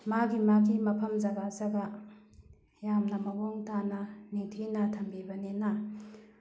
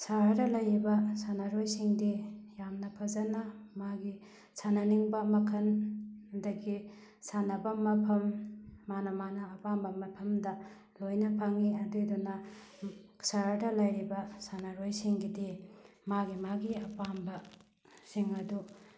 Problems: background sounds at intervals